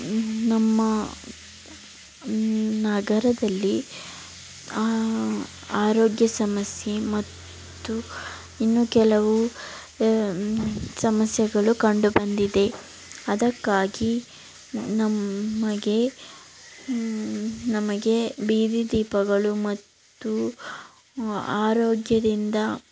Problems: background sounds at intervals